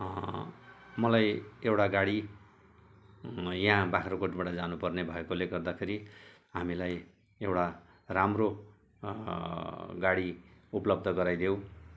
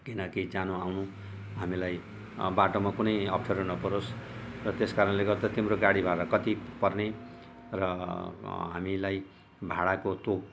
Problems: none marked